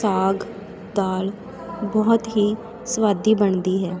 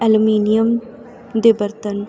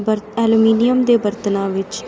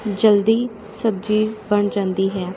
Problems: constant background noise, continuous background conversations